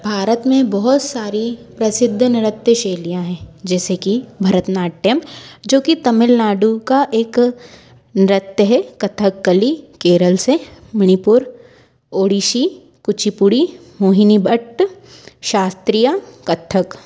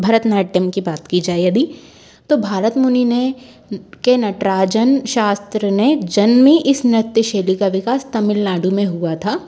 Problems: constant background noise, background conversations at intervals